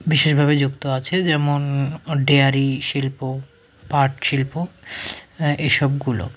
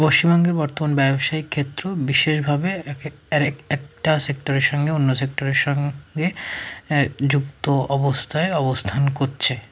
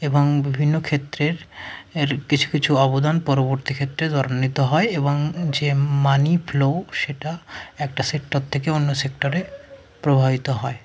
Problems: none marked